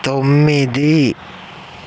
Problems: constant background noise